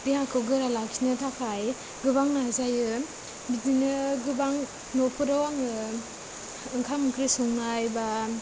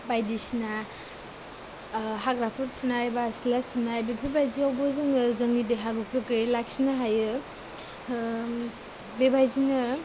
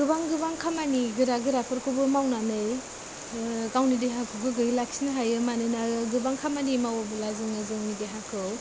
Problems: constant background noise, low volume